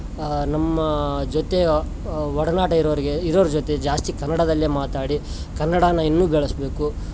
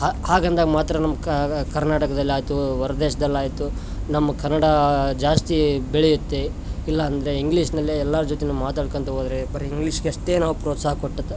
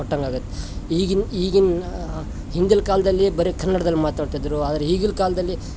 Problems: background sounds at intervals